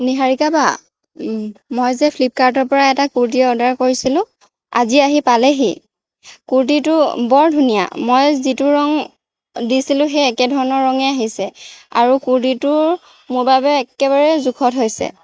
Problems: background sounds at intervals